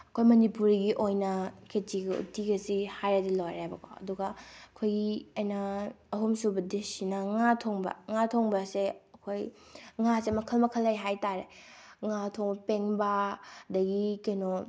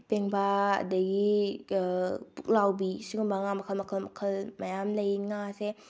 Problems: none marked